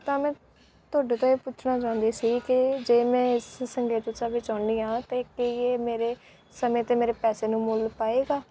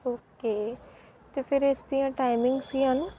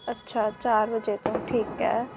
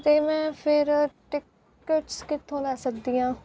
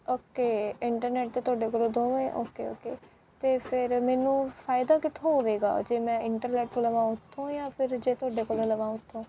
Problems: constant background noise